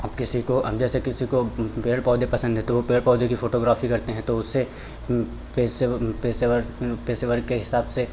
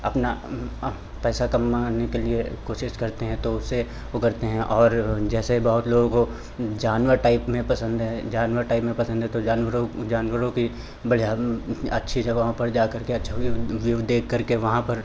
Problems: none marked